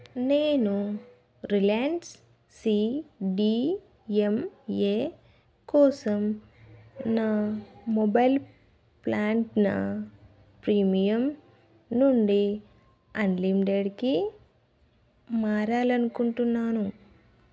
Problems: none marked